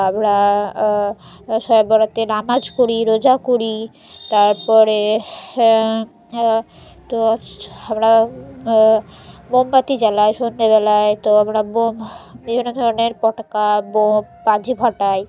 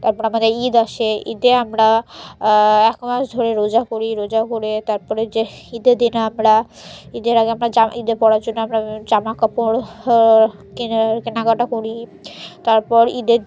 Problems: constant background noise